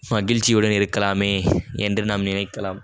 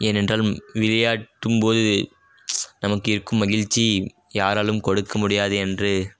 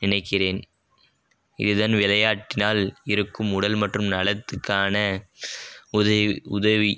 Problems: none marked